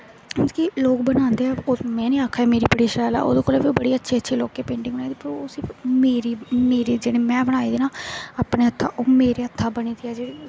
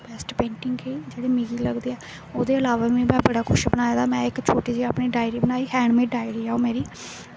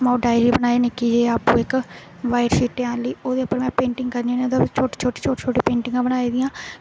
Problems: constant background noise